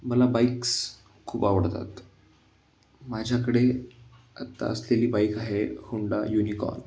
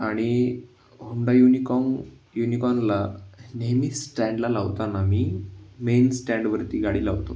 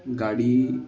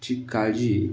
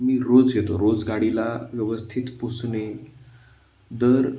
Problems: constant background noise, background conversations at intervals